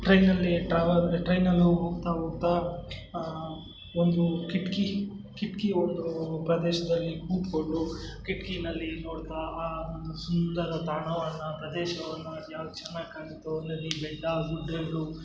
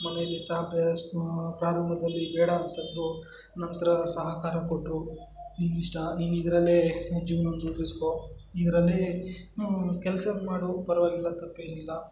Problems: background sounds at intervals